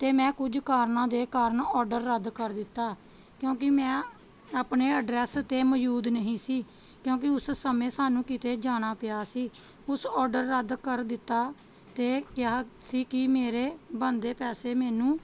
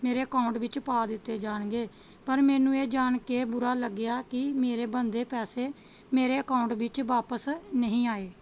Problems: background sounds at intervals, background conversations at intervals